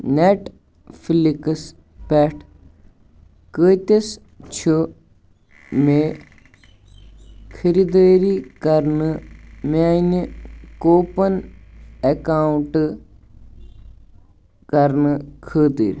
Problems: background sounds at intervals, background conversations at intervals